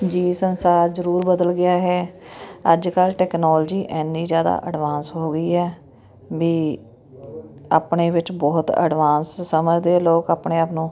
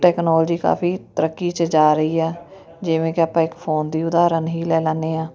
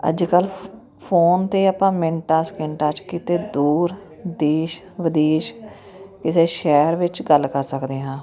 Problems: none marked